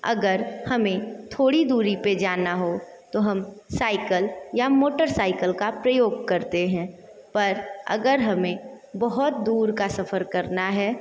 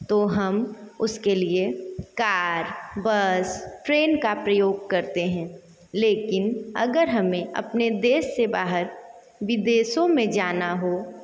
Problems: echo